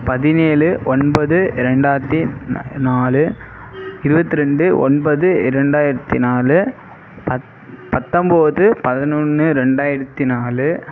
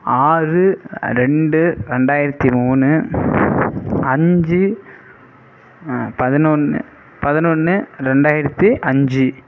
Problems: none marked